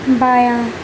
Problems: constant background noise